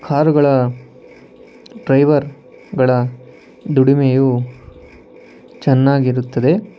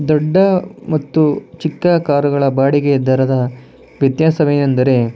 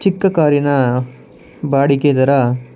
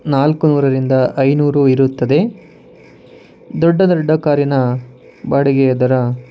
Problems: constant background noise